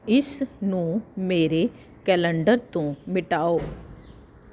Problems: none marked